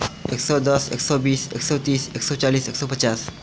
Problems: none marked